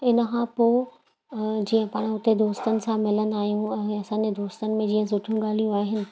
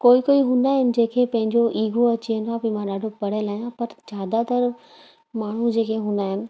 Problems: constant background noise